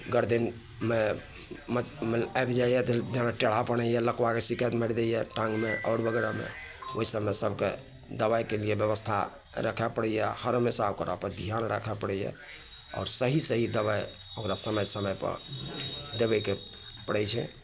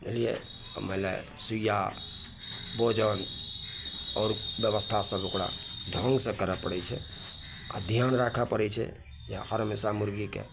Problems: none marked